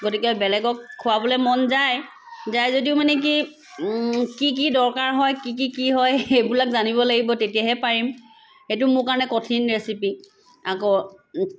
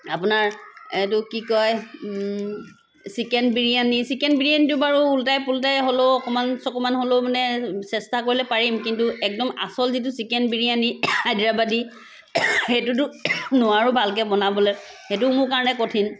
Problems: constant background noise